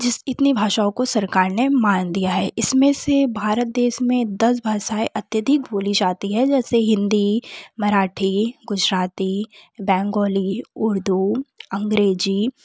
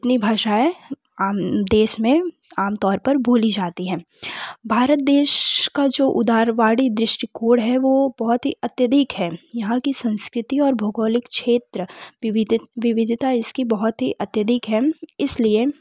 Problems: none marked